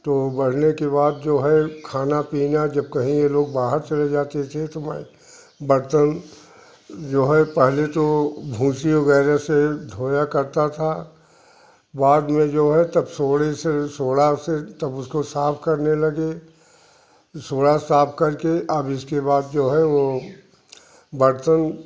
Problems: constant background noise